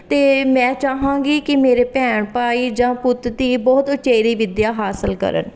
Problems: none marked